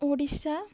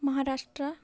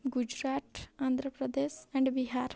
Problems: none marked